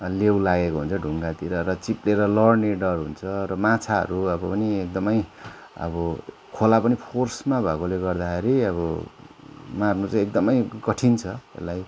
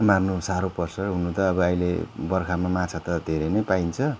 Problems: continuous background conversations